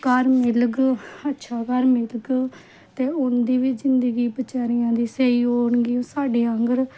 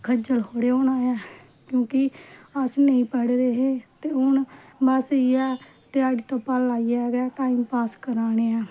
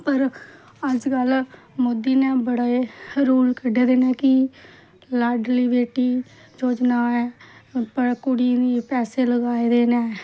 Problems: none marked